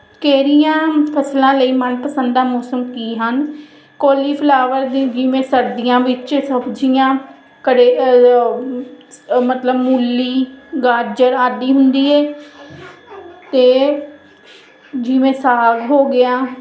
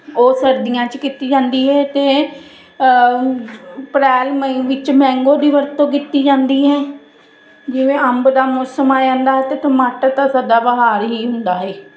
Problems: constant background noise